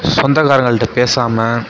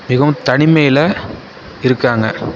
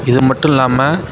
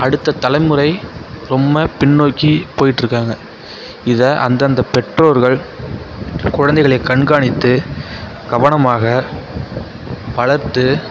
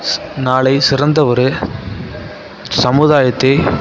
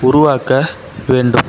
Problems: constant background noise, continuous background conversations